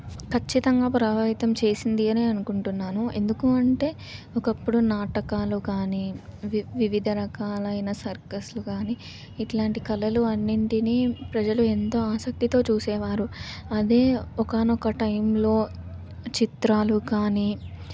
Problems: none marked